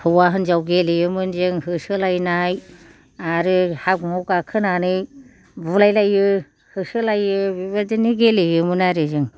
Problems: none marked